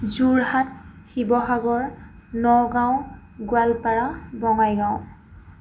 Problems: constant background noise